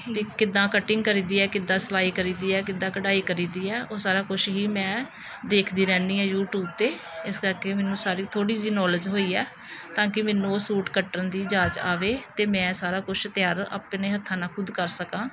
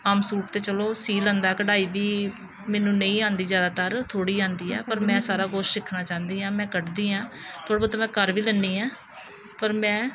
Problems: none marked